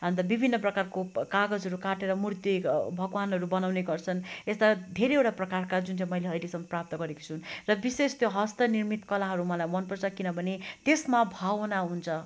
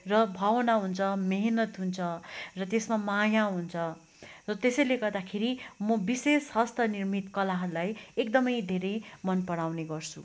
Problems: background sounds at intervals